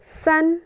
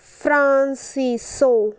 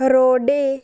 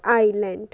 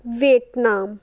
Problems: constant background noise